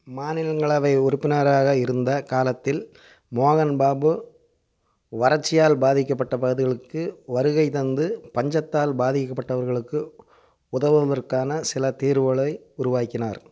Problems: none marked